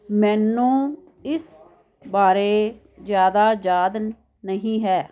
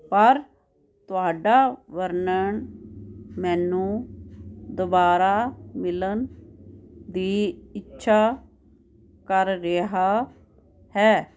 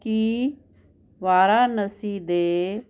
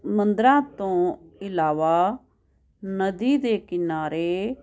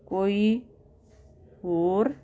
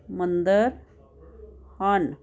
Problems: constant background noise